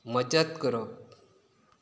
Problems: background sounds at intervals